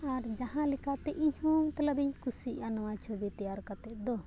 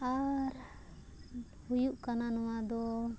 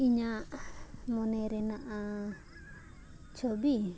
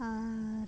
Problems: background sounds at intervals